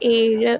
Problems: none marked